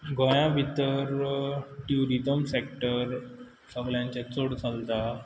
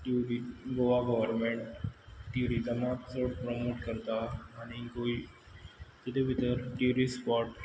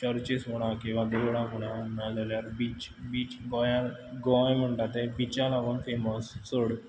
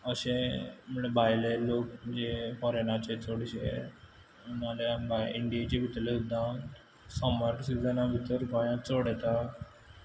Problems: none marked